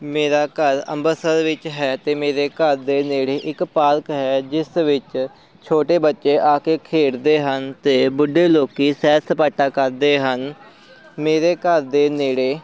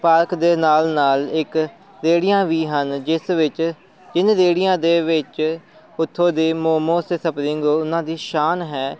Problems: none marked